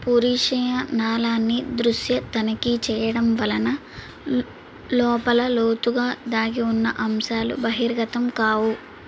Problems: constant background noise